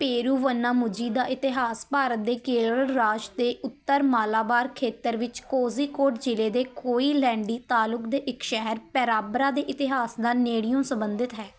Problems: background sounds at intervals